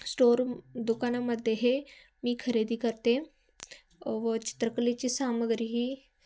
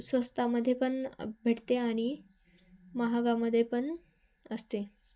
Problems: constant background noise